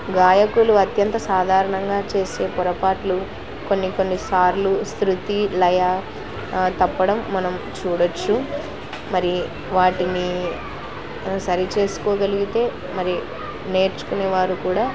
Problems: constant background noise